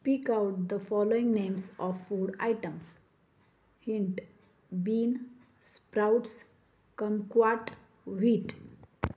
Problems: none marked